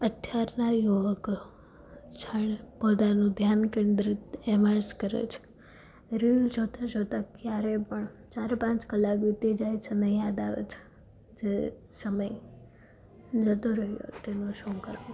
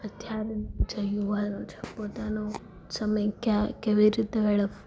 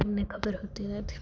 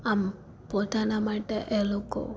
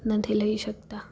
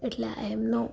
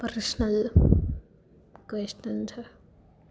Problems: none marked